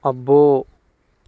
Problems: constant background noise